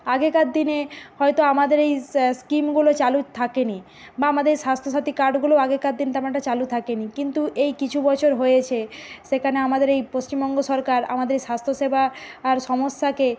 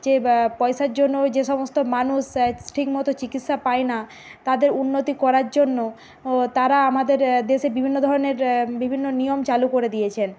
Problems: constant background noise